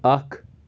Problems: background sounds at intervals